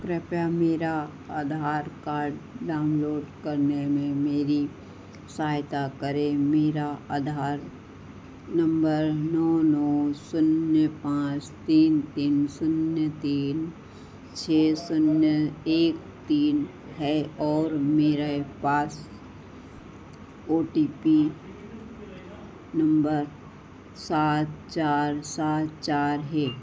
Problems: constant background noise, echo